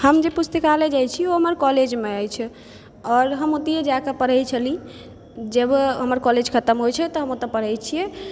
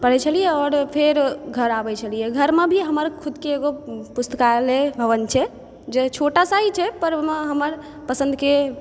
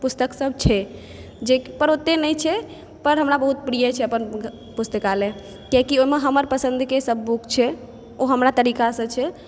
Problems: background sounds at intervals